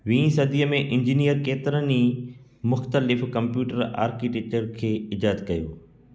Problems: background sounds at intervals, echo